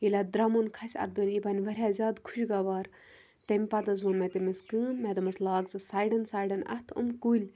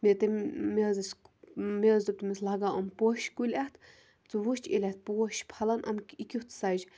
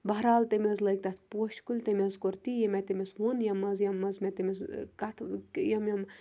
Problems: none marked